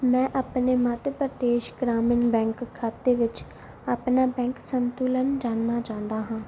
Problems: background sounds at intervals